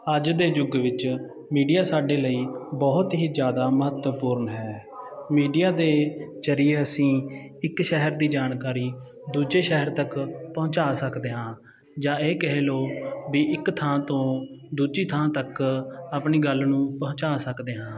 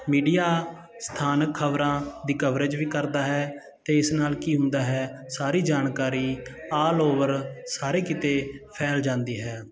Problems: continuous background conversations